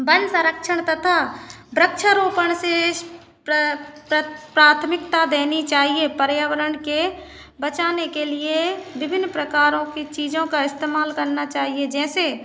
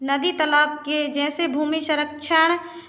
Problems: constant background noise